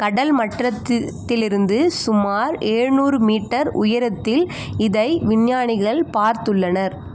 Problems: constant background noise